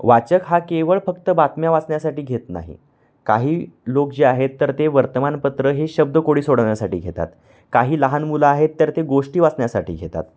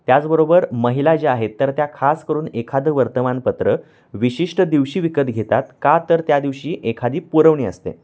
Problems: background sounds at intervals